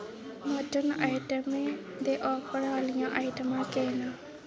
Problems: constant background noise, background conversations at intervals